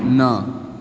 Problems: none marked